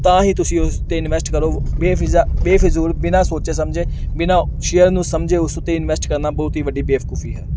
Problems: none marked